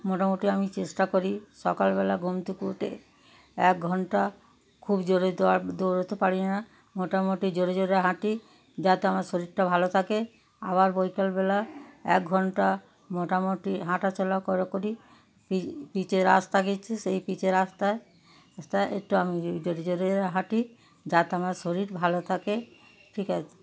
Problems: background sounds at intervals, background conversations at intervals